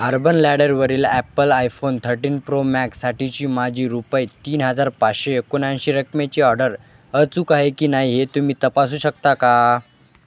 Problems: constant background noise, continuous background conversations